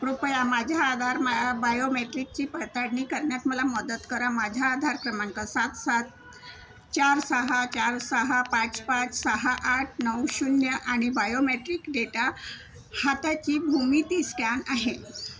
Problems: none marked